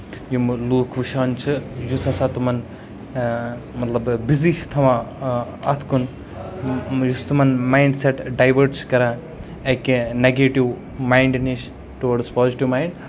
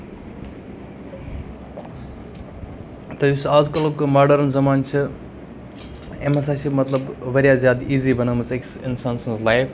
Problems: constant background noise